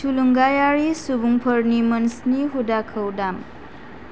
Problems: none marked